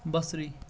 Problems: background sounds at intervals